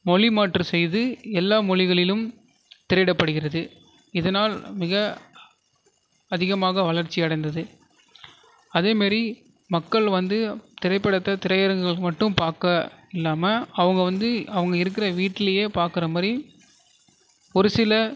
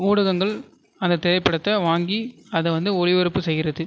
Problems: constant background noise